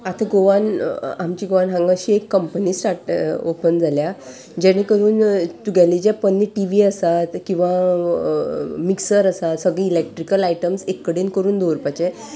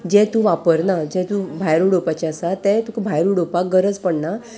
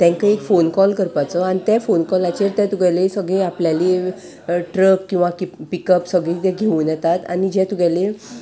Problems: none marked